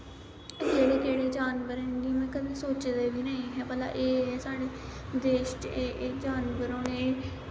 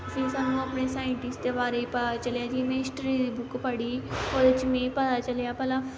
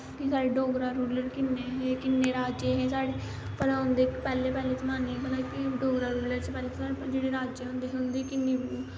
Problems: constant background noise